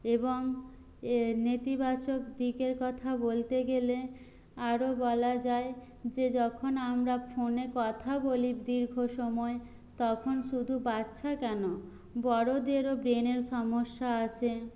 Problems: none marked